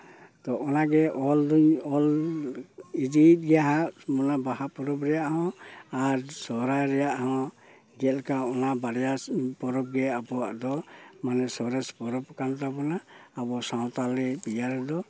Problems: constant background noise